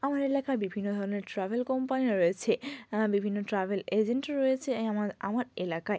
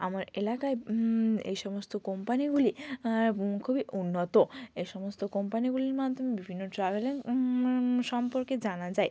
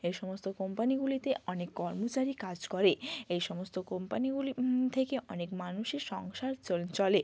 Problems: none marked